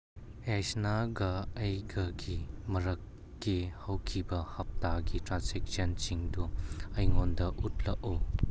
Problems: none marked